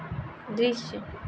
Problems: constant background noise